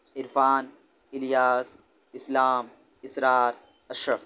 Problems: background sounds at intervals